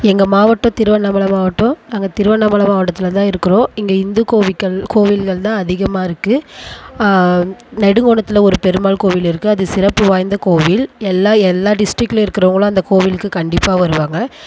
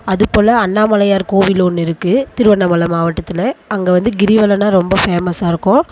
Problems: background sounds at intervals